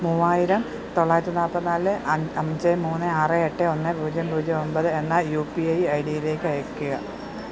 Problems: none marked